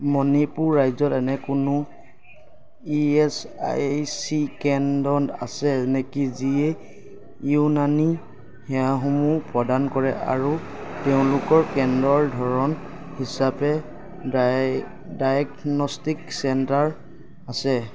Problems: constant background noise